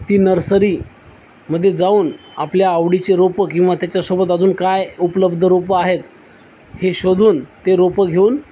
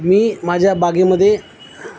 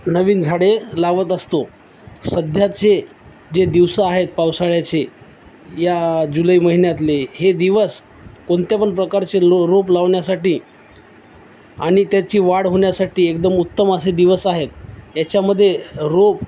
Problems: none marked